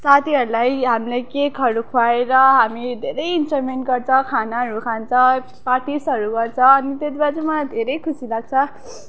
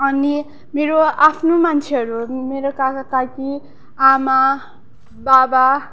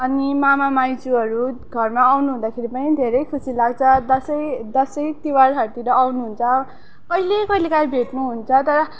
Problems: constant background noise, background conversations at intervals